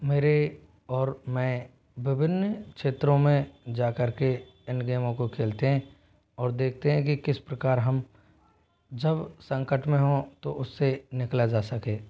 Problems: background sounds at intervals, low volume